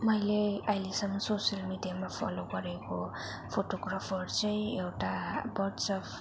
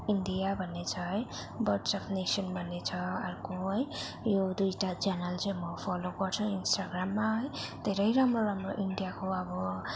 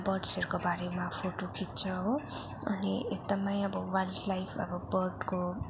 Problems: constant background noise